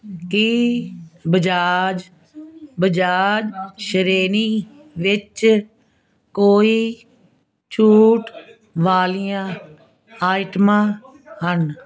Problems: constant background noise